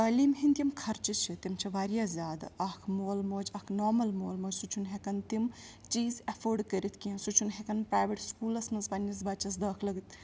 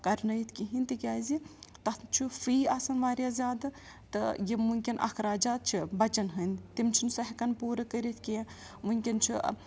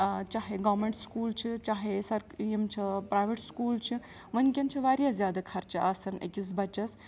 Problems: background sounds at intervals